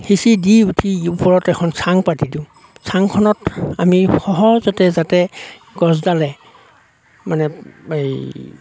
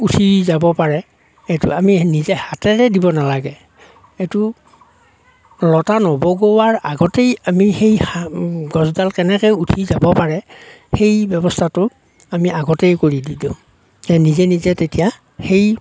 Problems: none marked